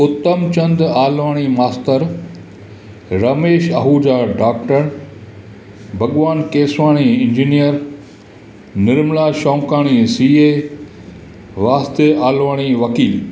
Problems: constant background noise, echo